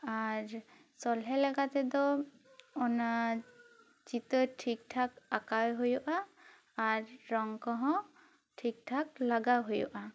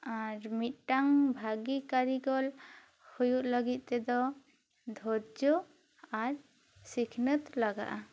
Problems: none marked